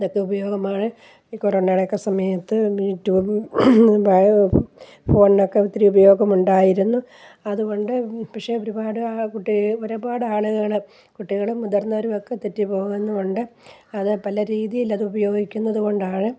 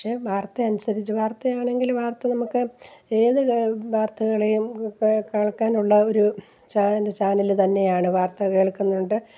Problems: none marked